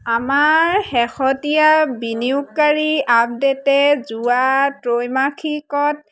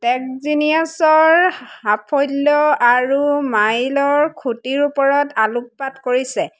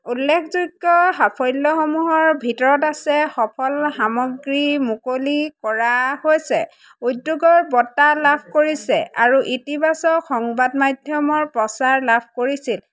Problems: none marked